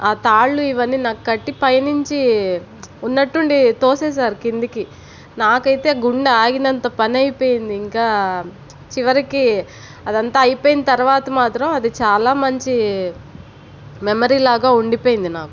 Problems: constant background noise